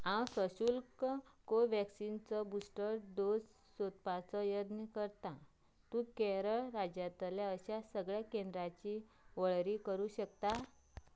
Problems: low volume